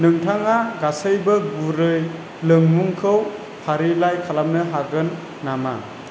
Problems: constant background noise